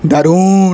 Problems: none marked